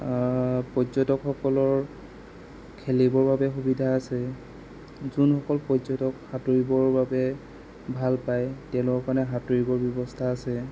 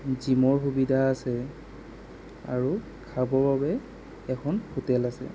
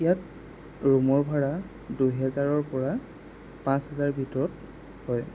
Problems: constant background noise